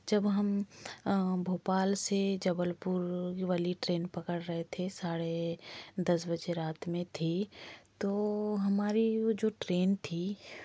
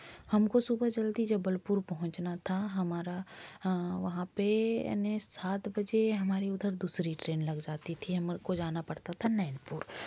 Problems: background sounds at intervals